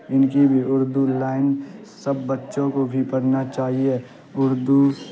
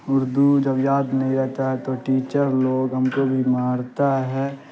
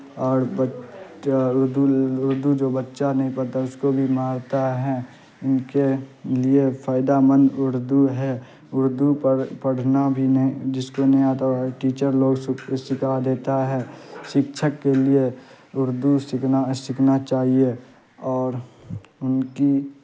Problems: constant background noise